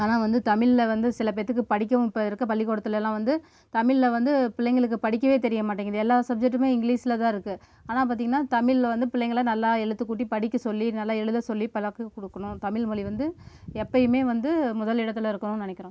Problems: background sounds at intervals